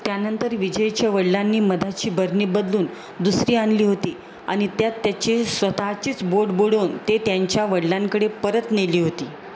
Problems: constant background noise